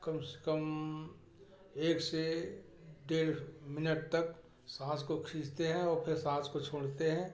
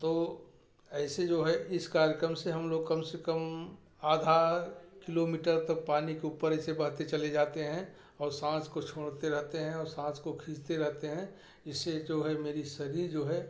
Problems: none marked